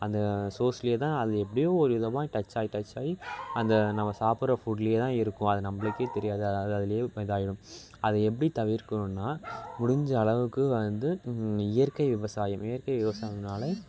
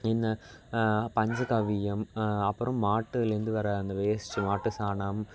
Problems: constant background noise, background conversations at intervals